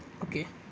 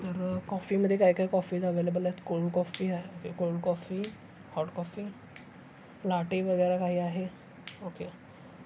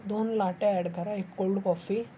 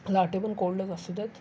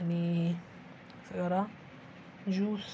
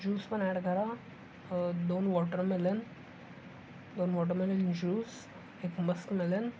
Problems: none marked